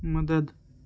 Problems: constant background noise